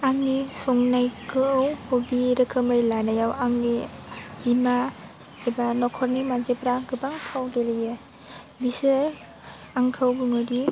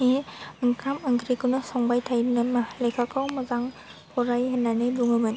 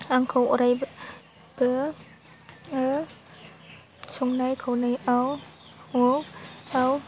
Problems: low volume